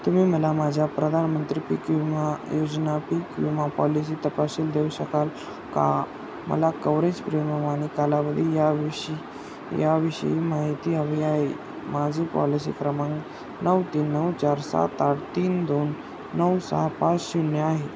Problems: constant background noise